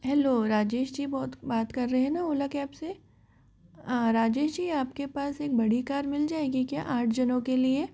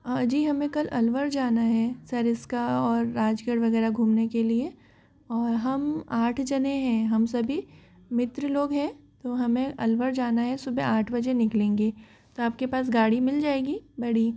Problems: background sounds at intervals